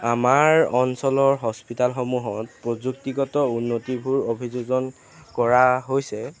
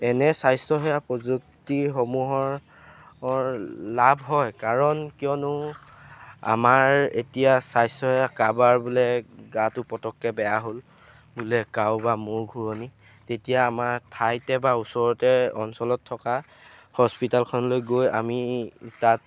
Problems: constant background noise